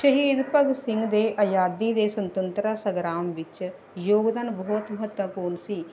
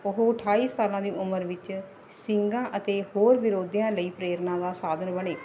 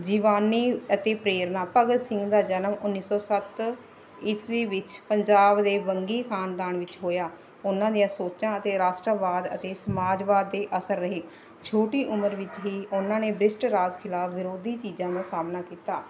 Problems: none marked